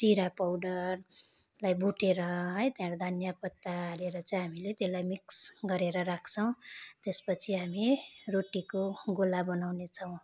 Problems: constant background noise